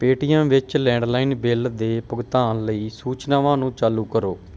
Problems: none marked